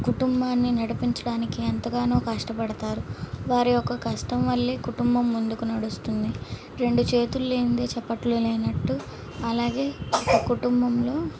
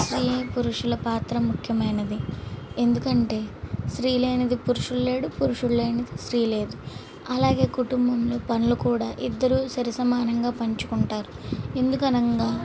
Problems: none marked